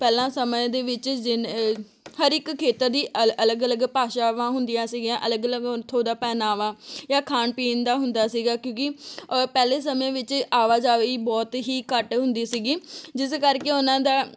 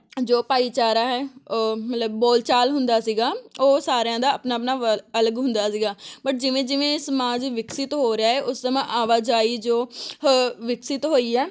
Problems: background sounds at intervals